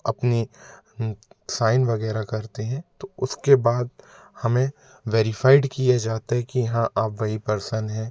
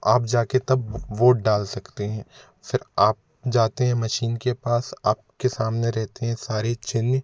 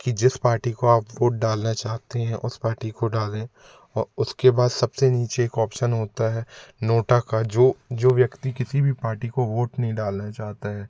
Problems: none marked